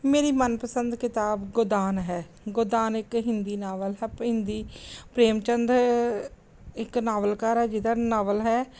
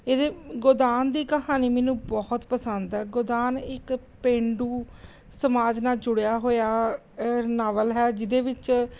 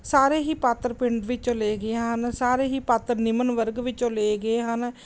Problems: background sounds at intervals